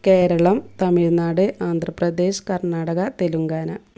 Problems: none marked